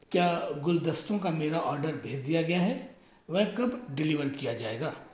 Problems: none marked